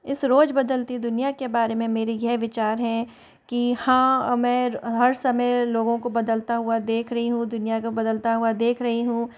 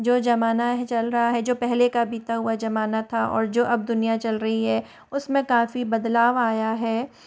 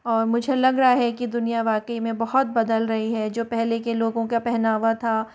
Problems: constant background noise